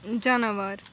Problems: none marked